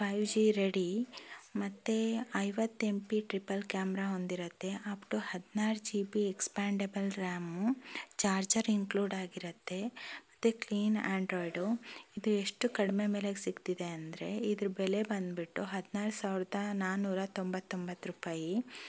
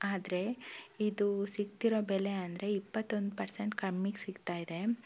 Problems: none marked